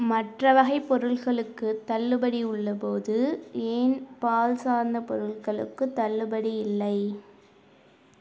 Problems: none marked